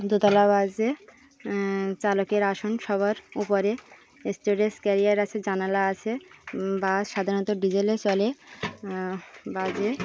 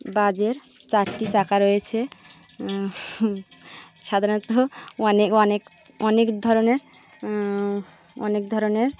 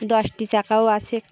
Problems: constant background noise, background conversations at intervals